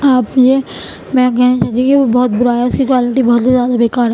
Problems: constant background noise